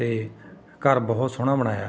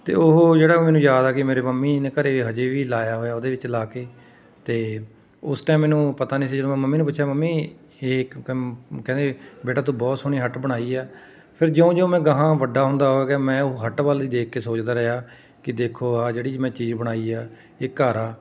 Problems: background sounds at intervals, continuous background conversations